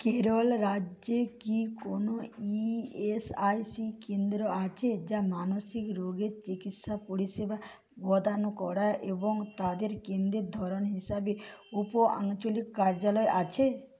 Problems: none marked